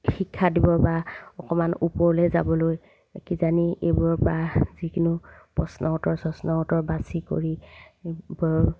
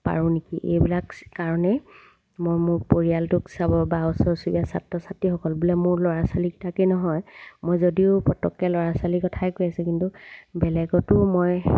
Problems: background sounds at intervals